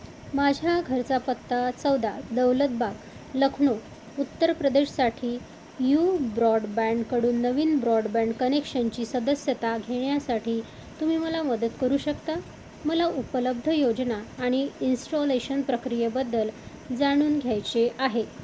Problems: constant background noise